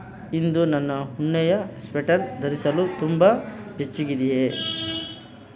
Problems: constant background noise